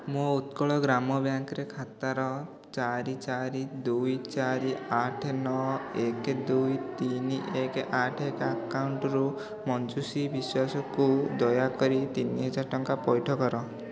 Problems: continuous background conversations